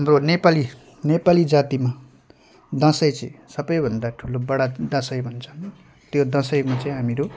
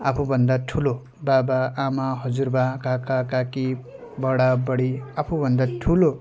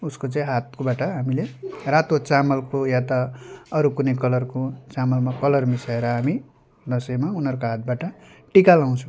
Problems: constant background noise